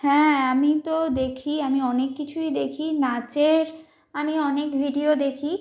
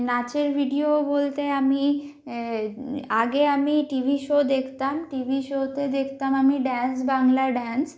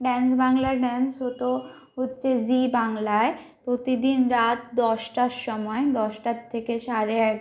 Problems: constant background noise